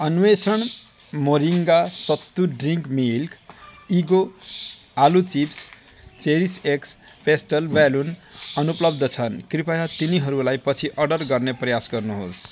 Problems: background sounds at intervals, continuous background conversations